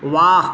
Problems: constant background noise